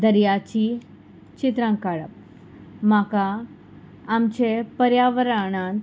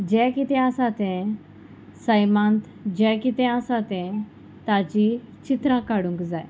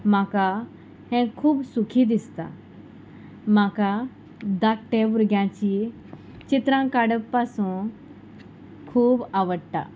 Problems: constant background noise